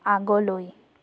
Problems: constant background noise